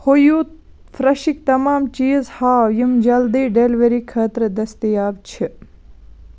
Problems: constant background noise